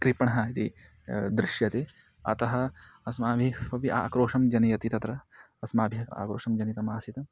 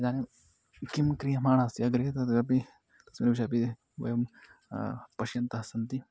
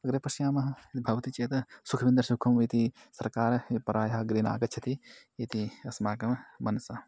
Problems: background conversations at intervals